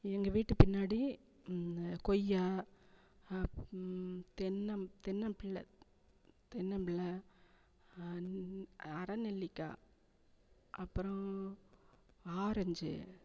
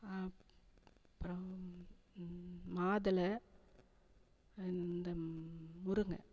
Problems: none marked